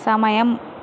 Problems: constant background noise